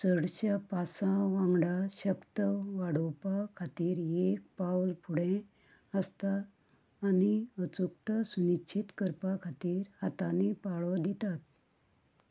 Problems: low volume